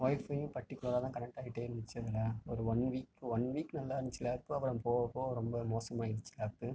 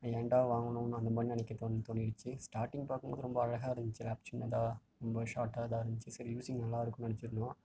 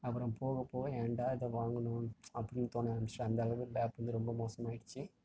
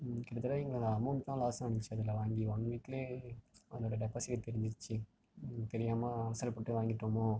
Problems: low volume